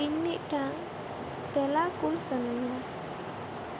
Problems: constant background noise